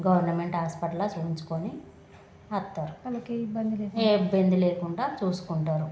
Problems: constant background noise, background conversations at intervals